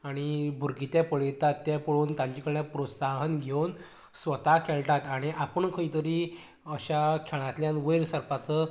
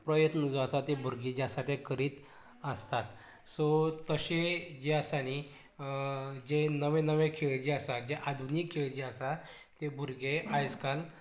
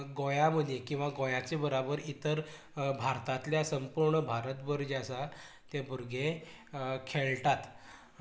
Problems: low volume